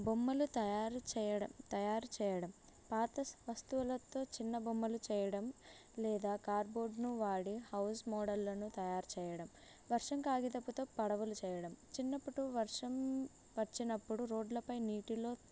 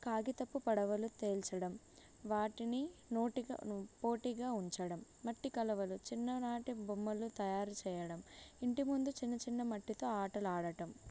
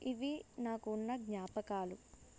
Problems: low volume